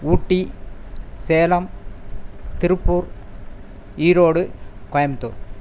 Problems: background sounds at intervals